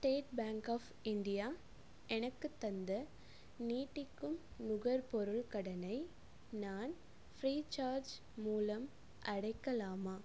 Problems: low volume